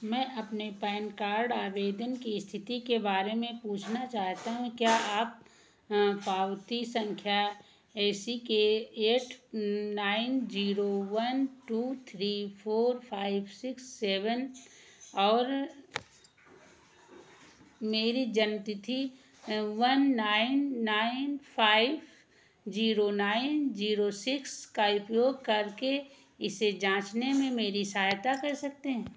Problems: background sounds at intervals, echo